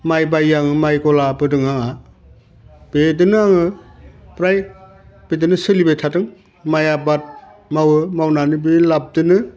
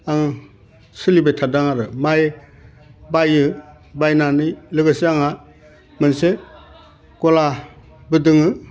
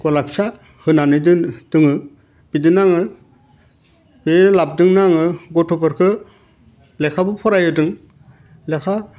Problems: none marked